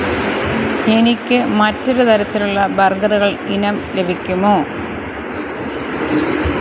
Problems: constant background noise